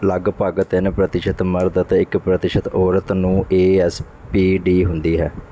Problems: none marked